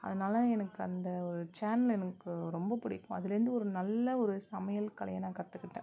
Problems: none marked